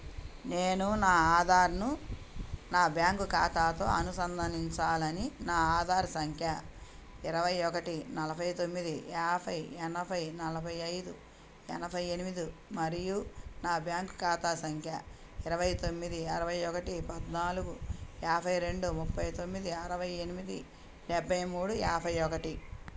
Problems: none marked